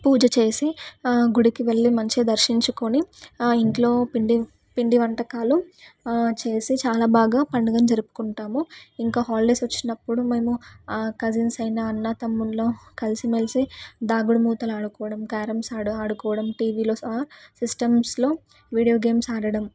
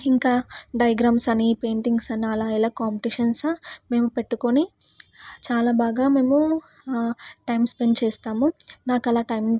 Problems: none marked